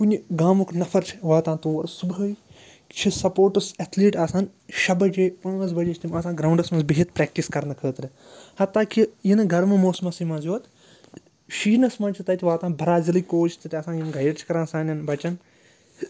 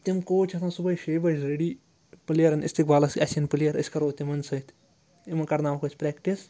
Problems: constant background noise